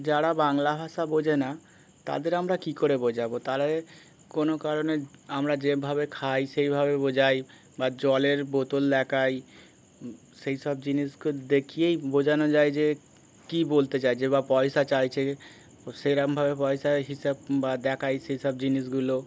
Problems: constant background noise